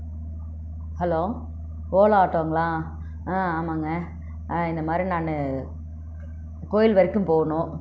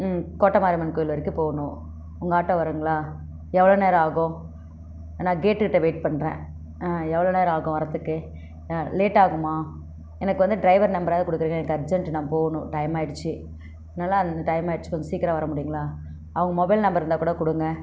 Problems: none marked